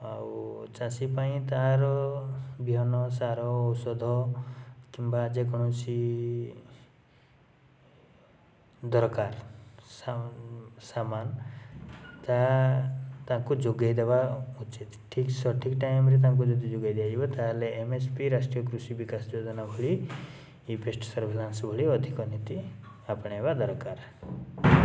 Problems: background sounds at intervals